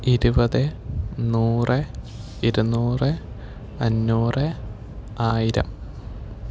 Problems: none marked